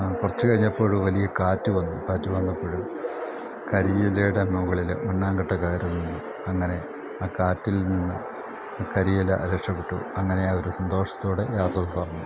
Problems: constant background noise